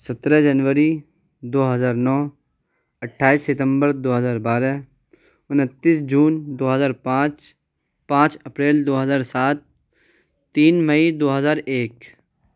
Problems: none marked